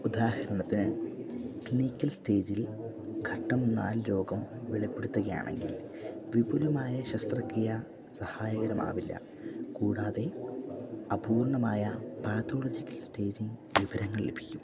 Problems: background sounds at intervals, low volume